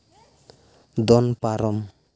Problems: none marked